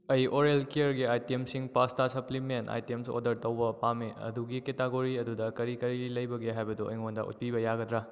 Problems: none marked